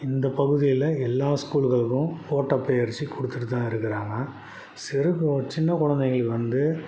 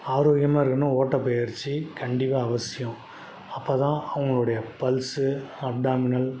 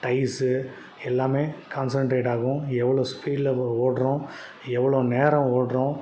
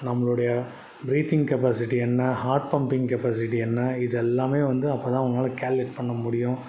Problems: background sounds at intervals